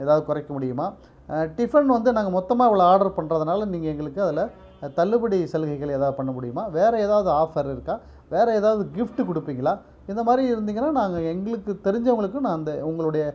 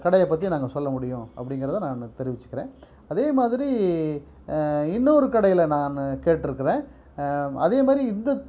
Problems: none marked